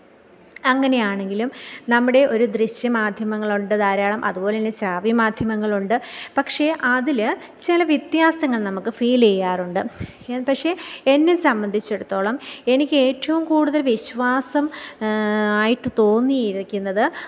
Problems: none marked